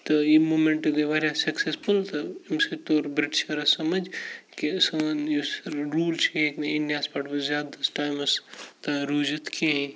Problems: background sounds at intervals, low volume